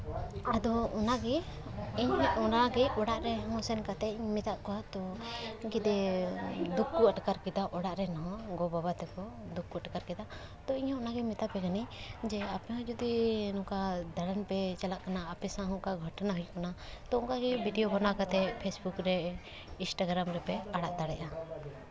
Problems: none marked